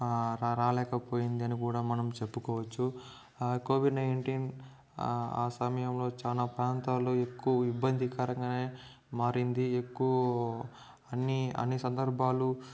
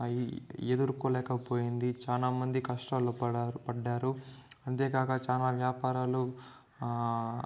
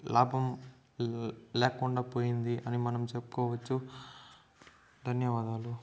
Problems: background sounds at intervals